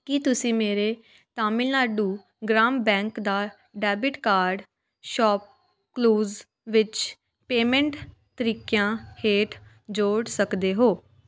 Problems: constant background noise